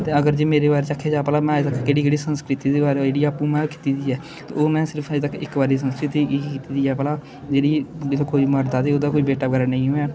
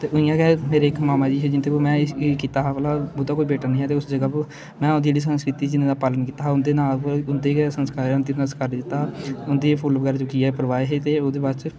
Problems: constant background noise, background conversations at intervals